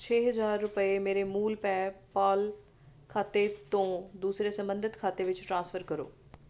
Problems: constant background noise